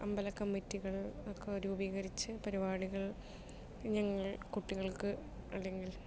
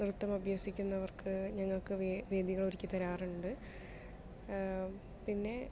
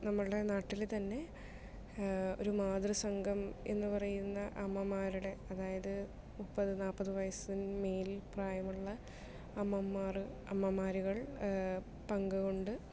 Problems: low volume